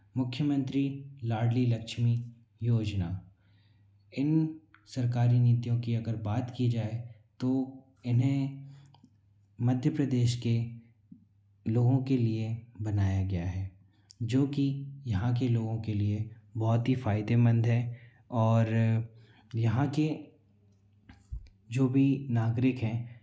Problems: constant background noise